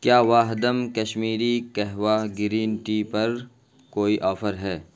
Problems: constant background noise